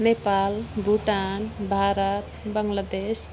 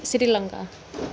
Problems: background sounds at intervals